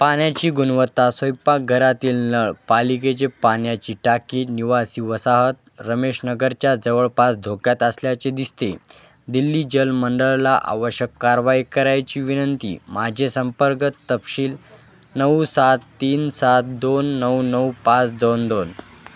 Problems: constant background noise